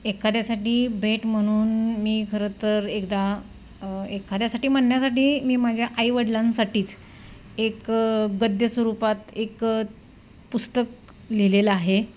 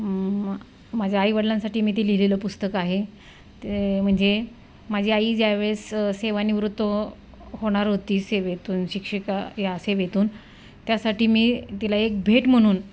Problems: constant background noise